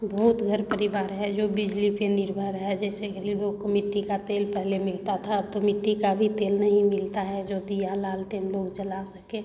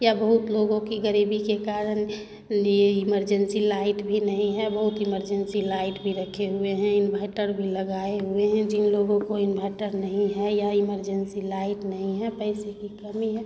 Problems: constant background noise, continuous background conversations